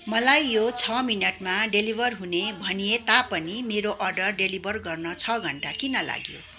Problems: none marked